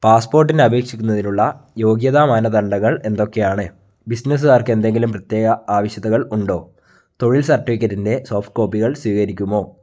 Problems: none marked